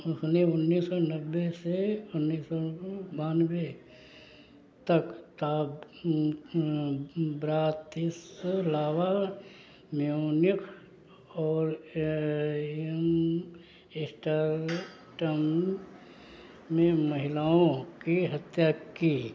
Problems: none marked